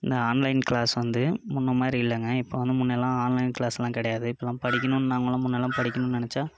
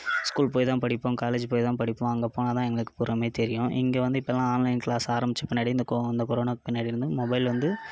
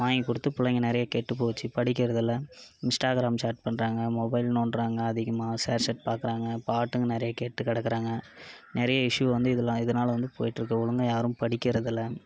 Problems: background sounds at intervals, background conversations at intervals